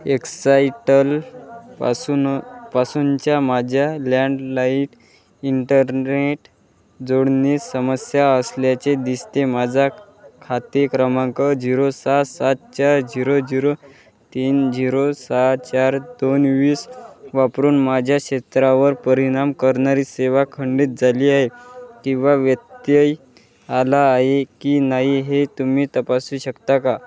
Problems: background conversations at intervals